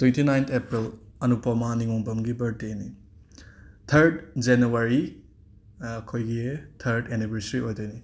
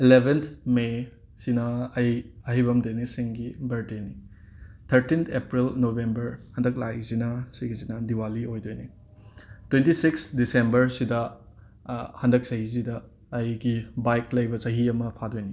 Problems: none marked